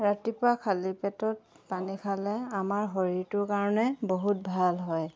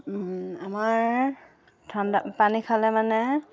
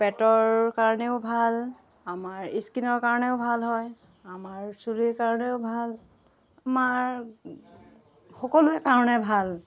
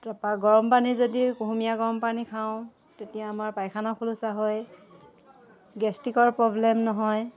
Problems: background conversations at intervals